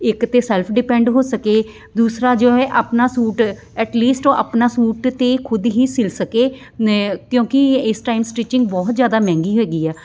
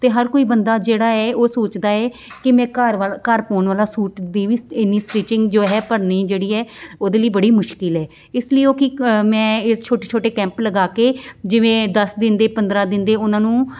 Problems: none marked